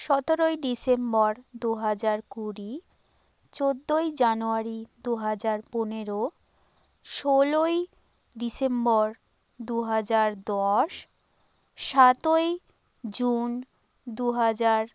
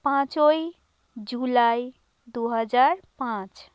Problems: constant background noise